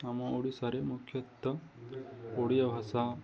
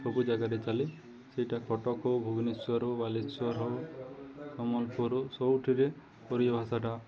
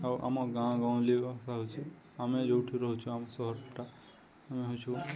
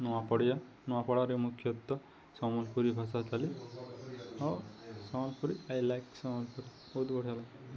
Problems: continuous background conversations